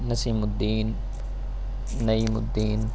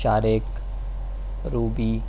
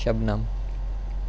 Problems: none marked